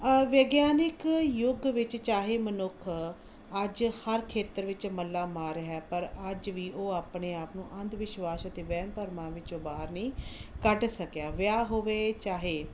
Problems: none marked